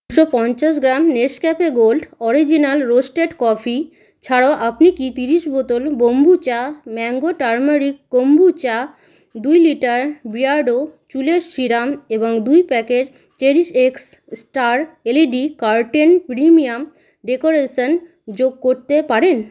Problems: none marked